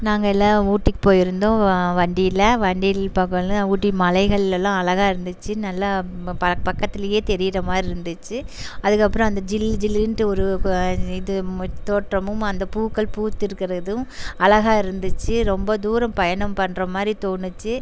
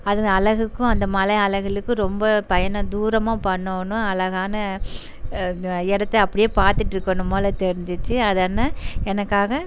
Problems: constant background noise